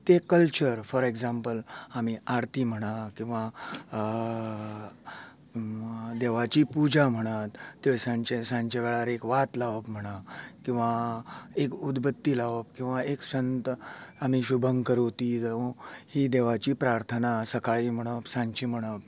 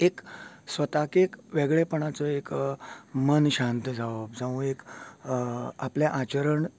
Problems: none marked